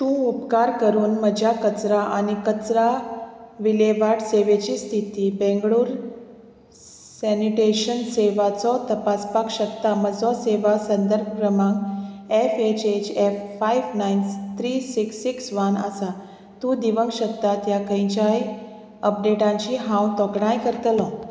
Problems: none marked